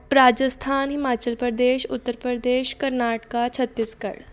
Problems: background conversations at intervals